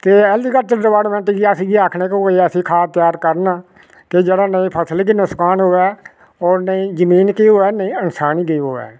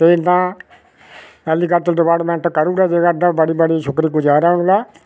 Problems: none marked